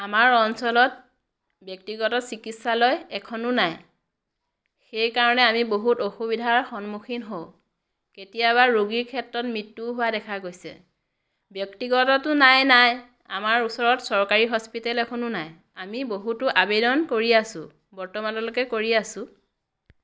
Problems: background sounds at intervals